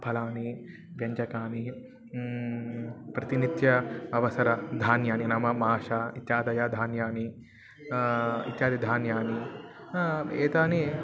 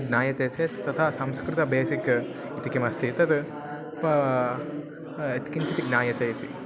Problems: none marked